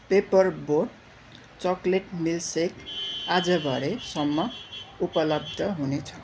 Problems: constant background noise